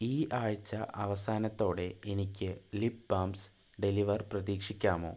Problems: low volume